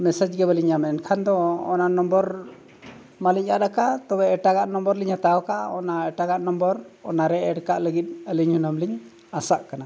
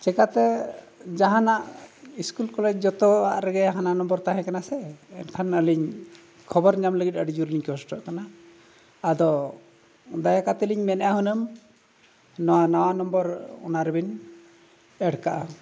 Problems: none marked